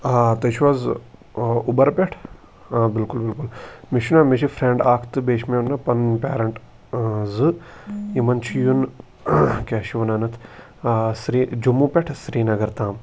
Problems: none marked